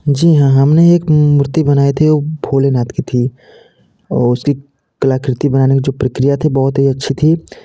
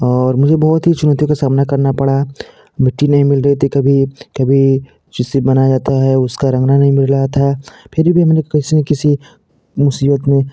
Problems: none marked